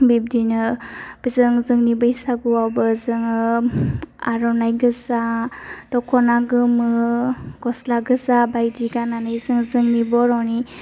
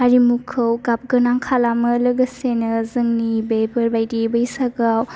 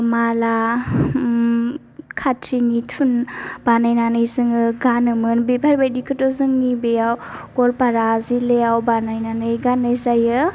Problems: low volume